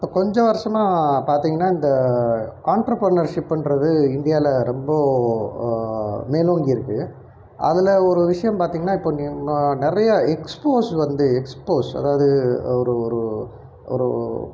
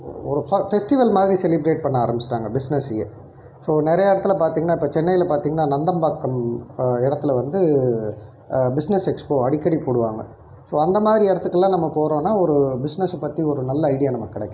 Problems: none marked